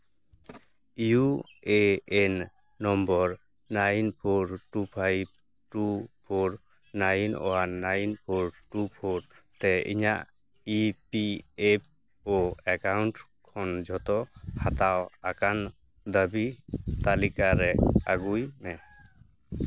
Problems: background sounds at intervals